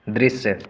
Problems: none marked